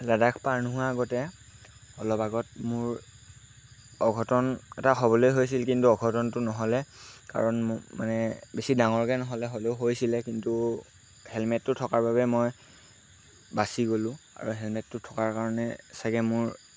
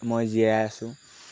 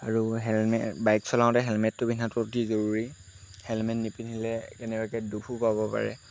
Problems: constant background noise